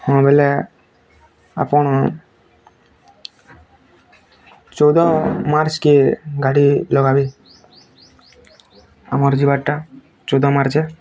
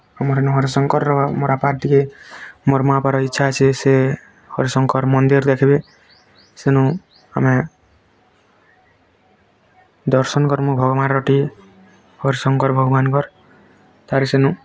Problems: constant background noise, continuous background conversations